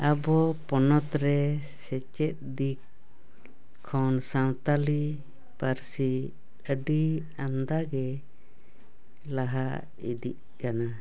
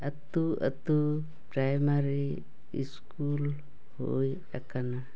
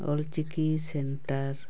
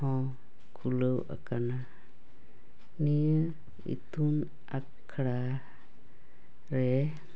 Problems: none marked